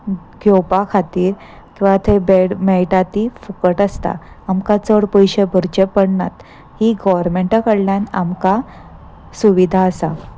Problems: constant background noise